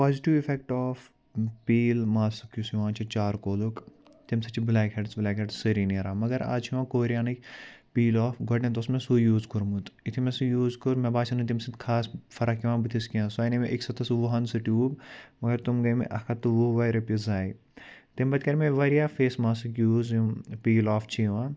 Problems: background sounds at intervals